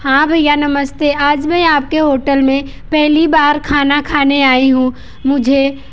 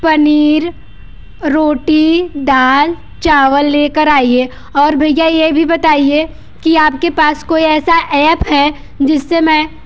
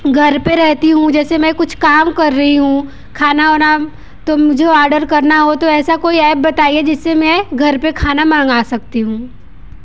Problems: constant background noise